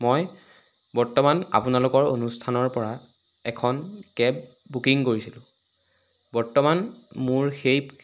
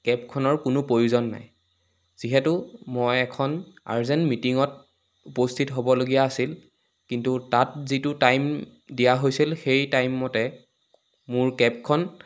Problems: background sounds at intervals